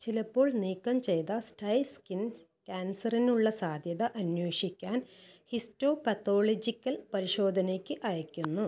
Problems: low volume